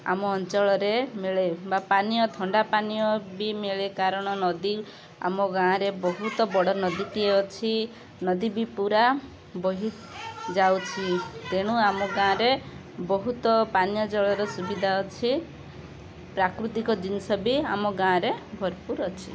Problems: constant background noise, continuous background conversations